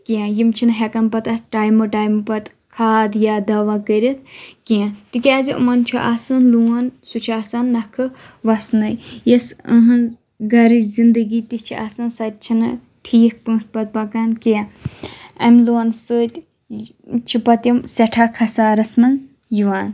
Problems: none marked